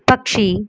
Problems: background sounds at intervals